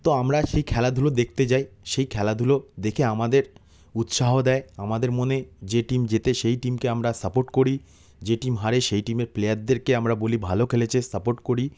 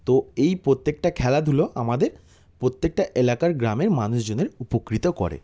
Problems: background sounds at intervals